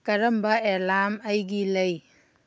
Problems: none marked